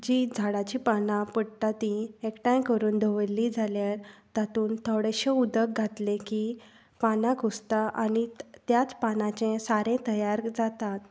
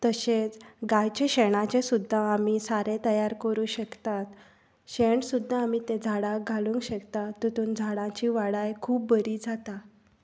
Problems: none marked